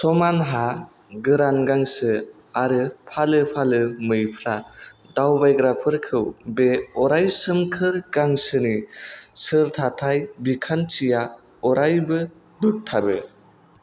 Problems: none marked